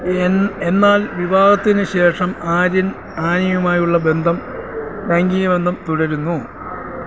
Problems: constant background noise